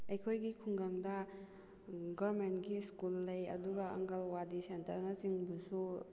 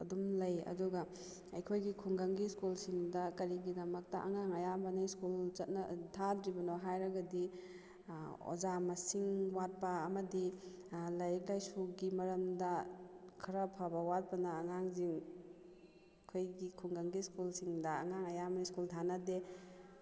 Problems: background sounds at intervals